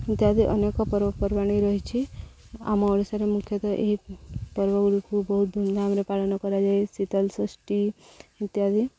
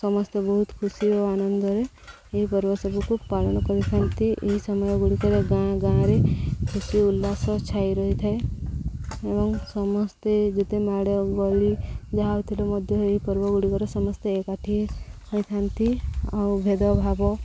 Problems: low volume